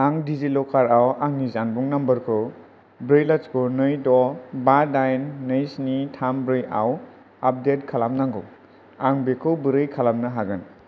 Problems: none marked